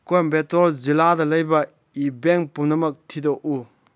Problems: none marked